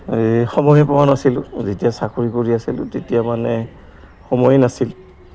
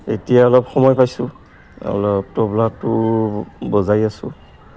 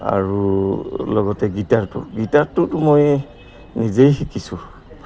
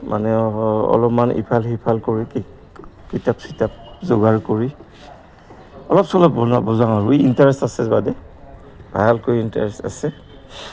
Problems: constant background noise